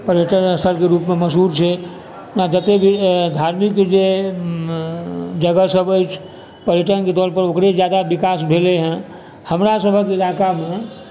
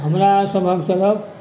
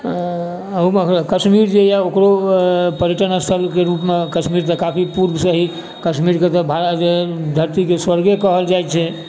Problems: constant background noise, background conversations at intervals